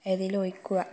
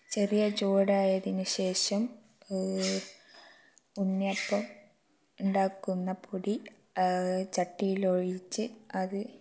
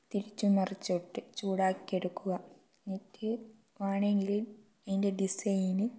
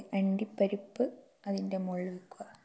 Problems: low volume